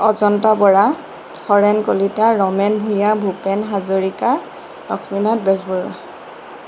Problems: constant background noise